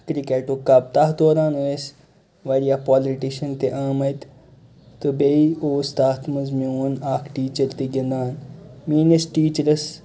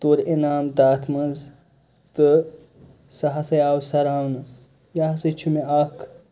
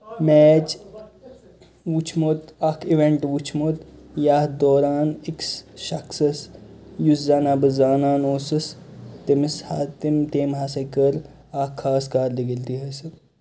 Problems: constant background noise, background conversations at intervals